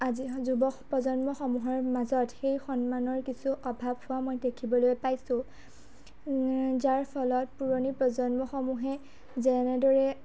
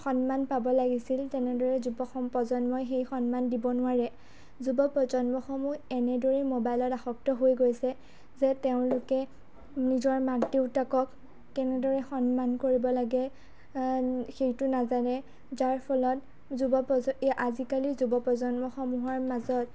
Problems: none marked